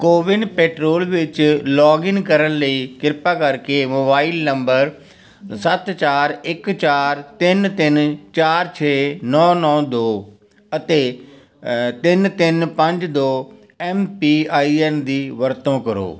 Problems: continuous background conversations